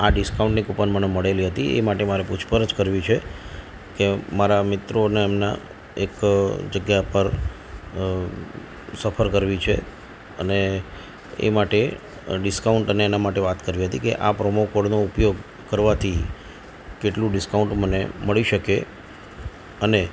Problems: none marked